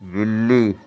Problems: constant background noise